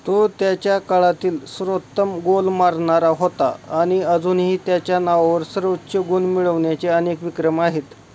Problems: constant background noise